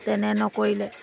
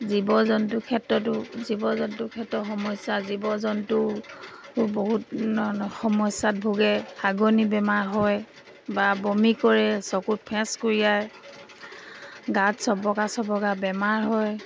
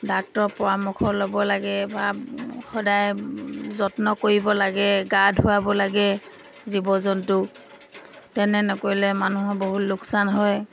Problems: background sounds at intervals